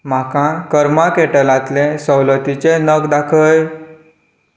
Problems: none marked